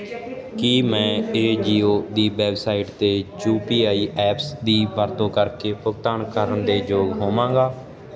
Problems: continuous background conversations